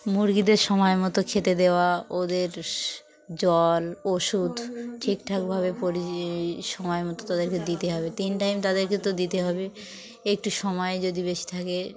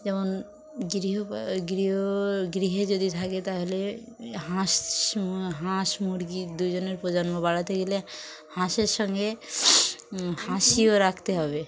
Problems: none marked